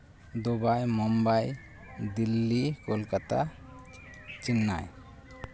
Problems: constant background noise, background conversations at intervals